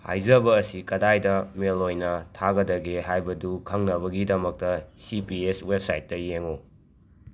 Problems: background sounds at intervals